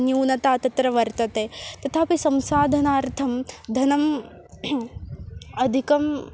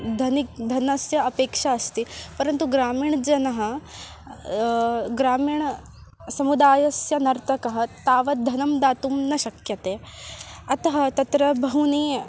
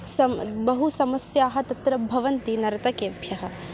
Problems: constant background noise, continuous background conversations